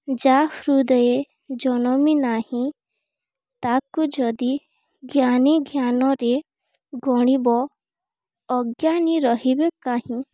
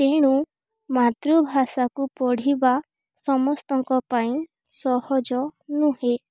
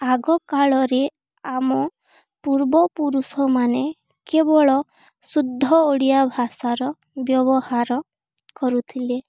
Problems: none marked